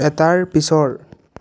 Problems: background conversations at intervals